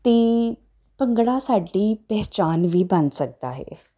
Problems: constant background noise